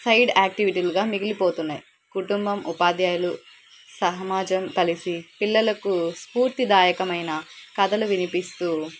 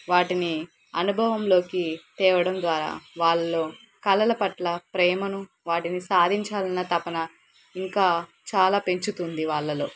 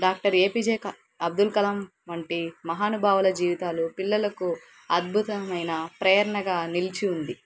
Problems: background sounds at intervals